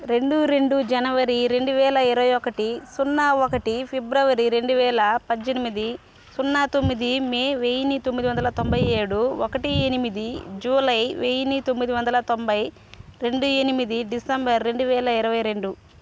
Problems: constant background noise